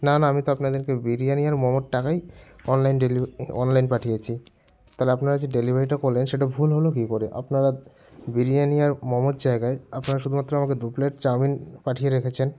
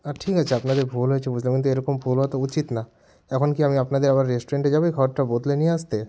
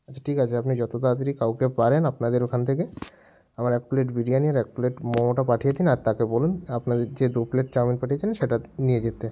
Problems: background sounds at intervals